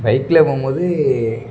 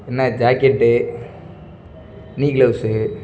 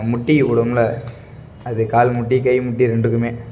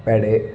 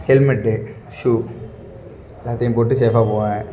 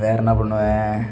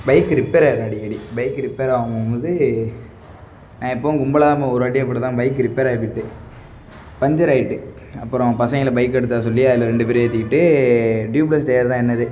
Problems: background sounds at intervals